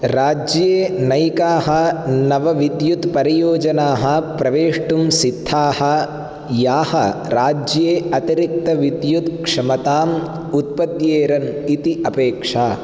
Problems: none marked